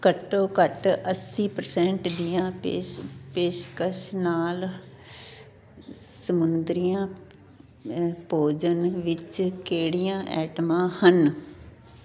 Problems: constant background noise, background conversations at intervals